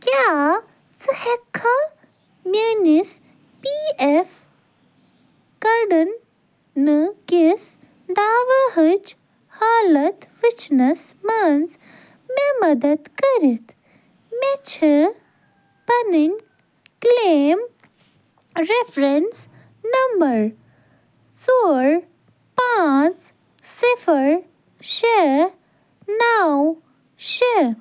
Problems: constant background noise